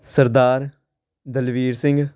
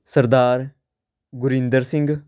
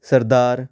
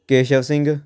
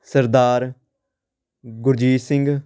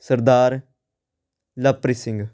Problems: none marked